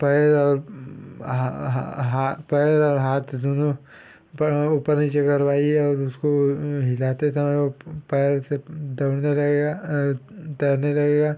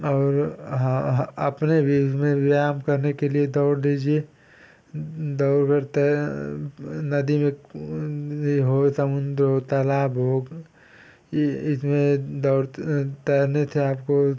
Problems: background sounds at intervals